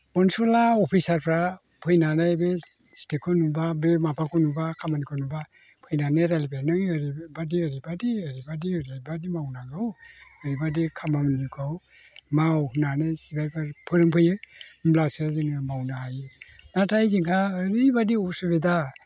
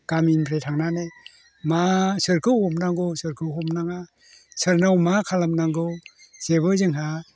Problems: constant background noise